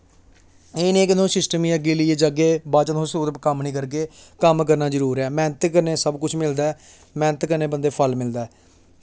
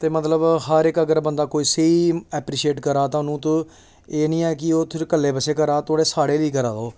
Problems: none marked